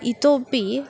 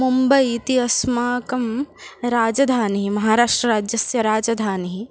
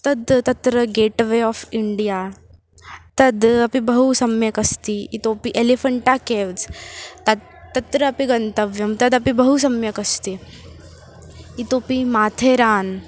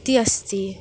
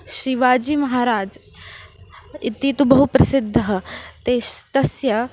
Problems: none marked